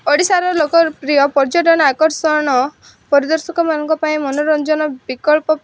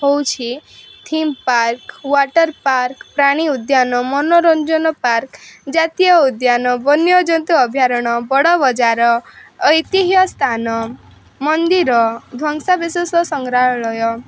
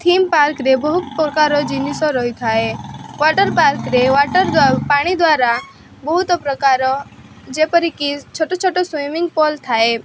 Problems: constant background noise